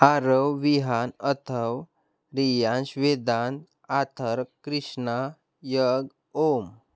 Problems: constant background noise